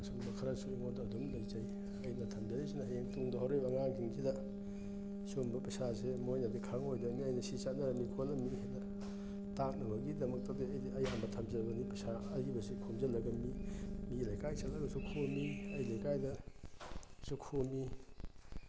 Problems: constant background noise